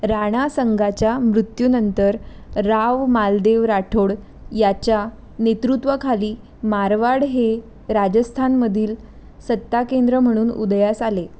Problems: none marked